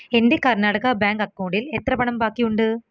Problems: background sounds at intervals